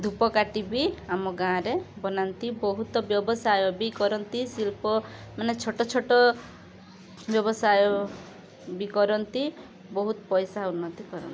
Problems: constant background noise